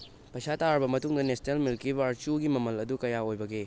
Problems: constant background noise